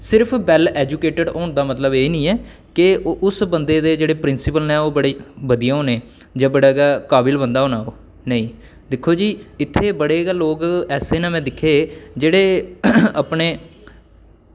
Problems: none marked